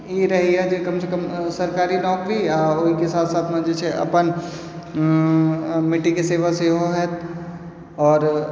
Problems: low volume